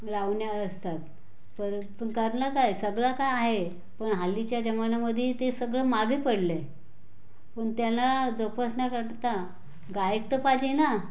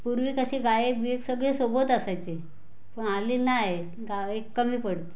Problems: none marked